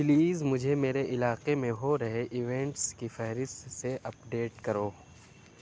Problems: constant background noise